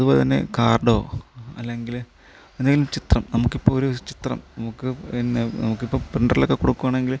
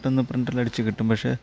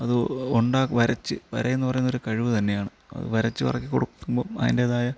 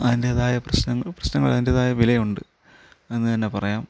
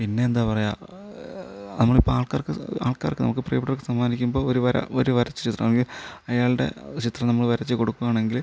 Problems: low volume